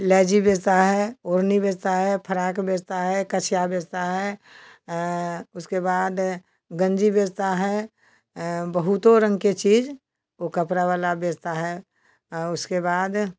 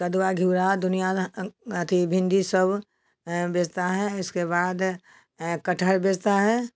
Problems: none marked